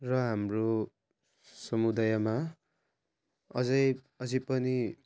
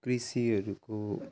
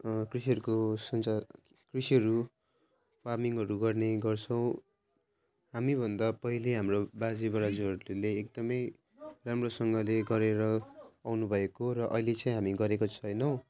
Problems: none marked